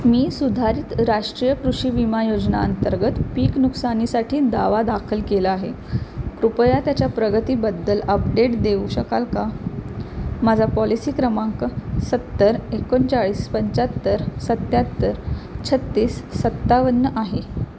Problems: constant background noise